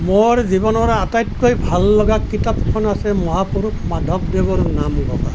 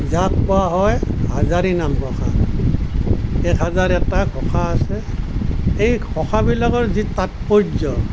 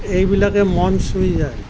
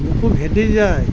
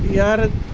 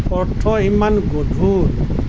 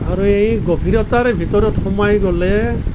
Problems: constant background noise